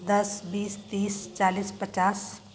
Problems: constant background noise